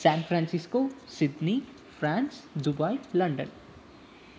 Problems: constant background noise